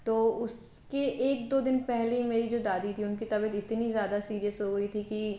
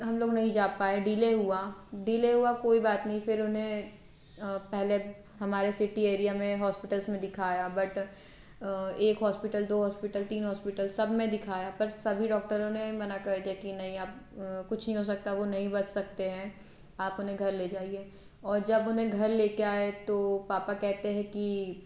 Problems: constant background noise